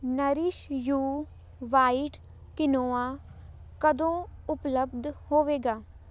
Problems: background sounds at intervals